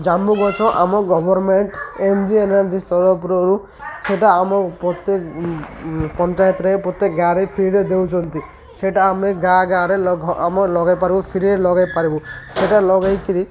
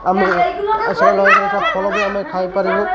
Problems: constant background noise, continuous background conversations